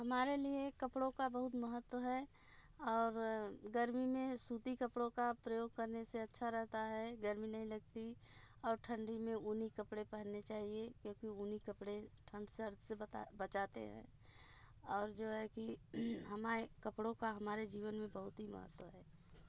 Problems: none marked